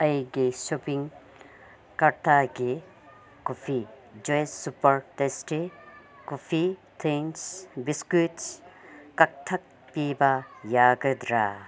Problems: constant background noise